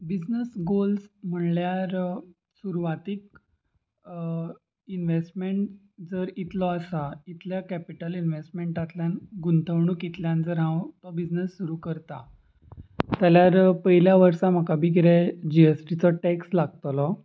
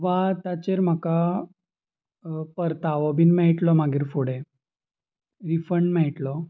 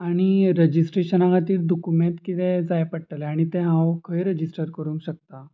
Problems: constant background noise